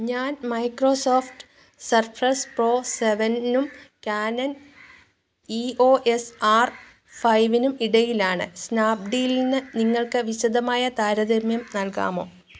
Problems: background sounds at intervals